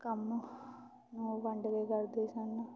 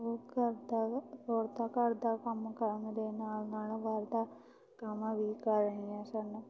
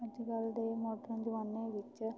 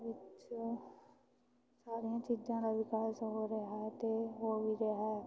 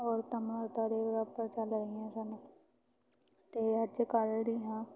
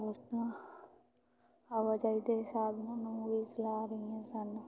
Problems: constant background noise